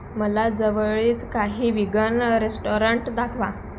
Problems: constant background noise